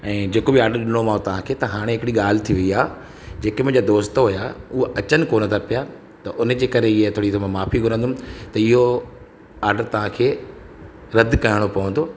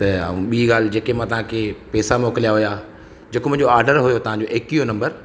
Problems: constant background noise, echo